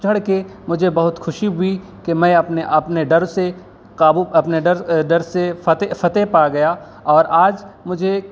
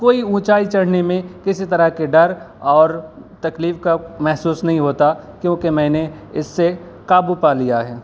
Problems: background sounds at intervals